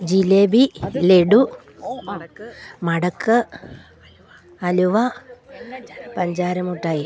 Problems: background conversations at intervals